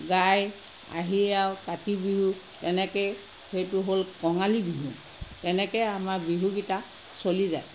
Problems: constant background noise